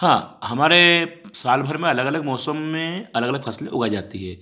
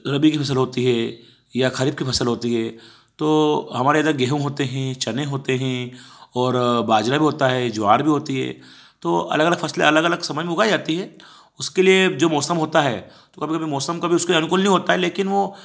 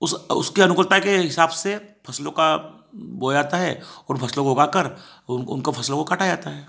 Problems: background sounds at intervals